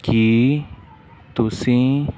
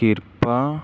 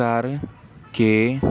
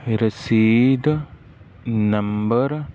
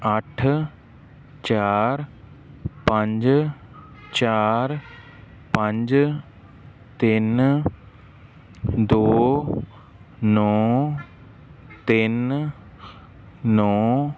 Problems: none marked